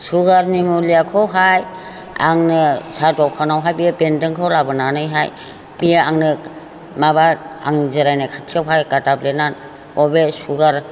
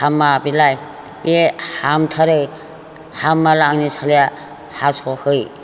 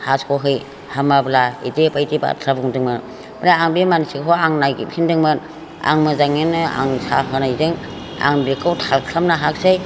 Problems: constant background noise